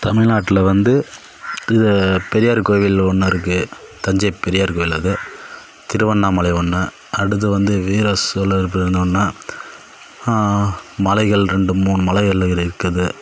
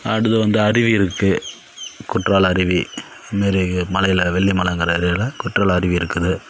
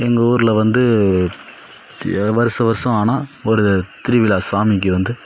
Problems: background sounds at intervals